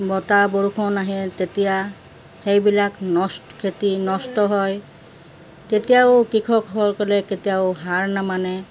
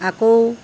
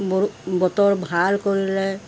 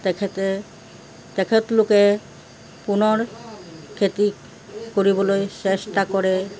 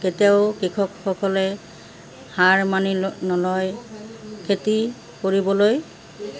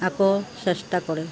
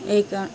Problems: constant background noise